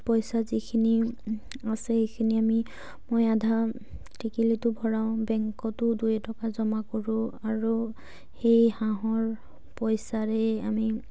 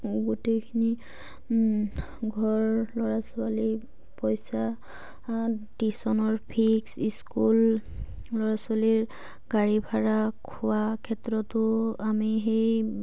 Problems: low volume